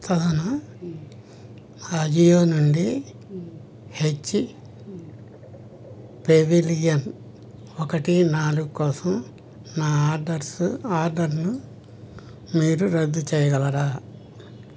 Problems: none marked